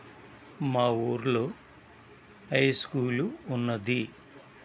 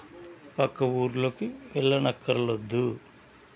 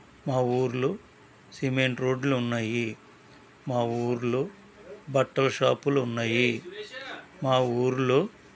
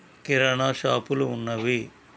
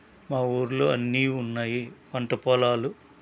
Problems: constant background noise